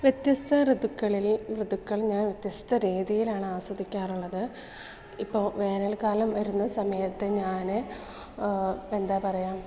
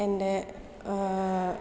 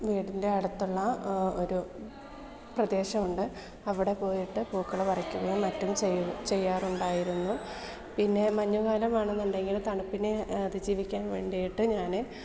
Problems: low volume